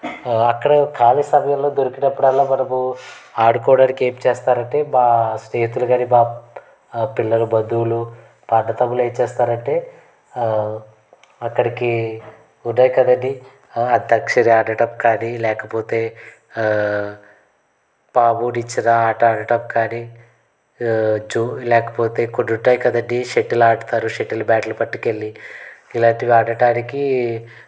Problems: background sounds at intervals, background conversations at intervals